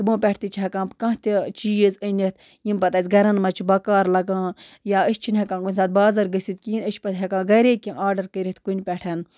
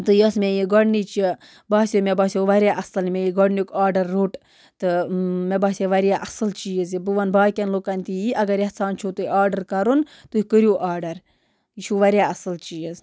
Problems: background sounds at intervals